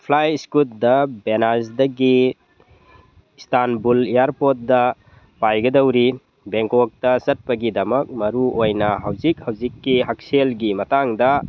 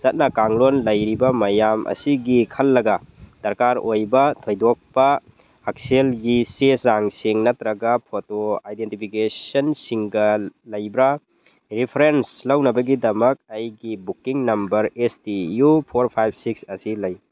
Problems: none marked